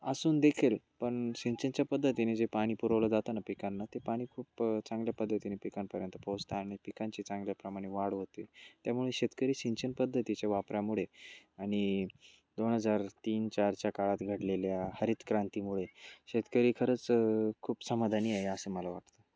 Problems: constant background noise, background conversations at intervals, low volume